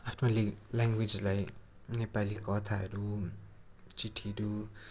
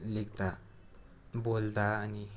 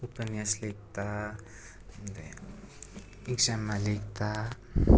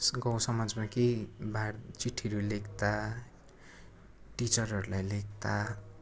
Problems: constant background noise